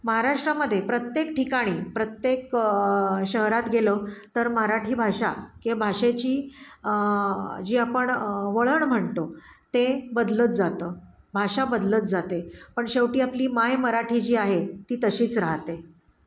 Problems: none marked